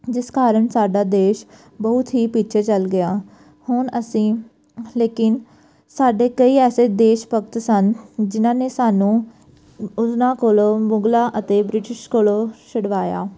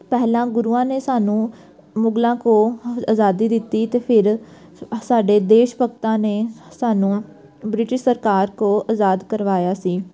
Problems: background sounds at intervals